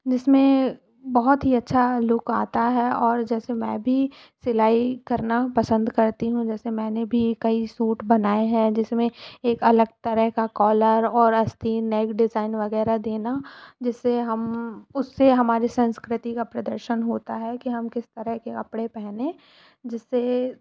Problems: none marked